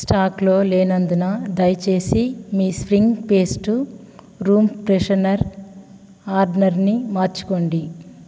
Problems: background sounds at intervals